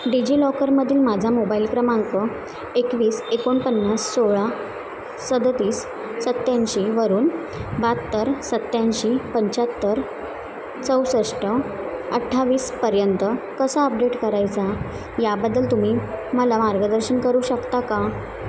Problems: constant background noise, continuous background conversations